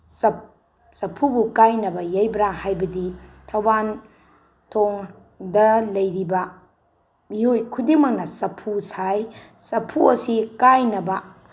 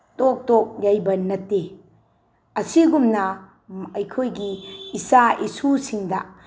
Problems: none marked